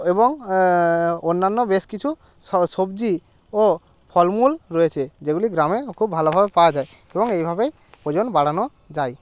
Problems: constant background noise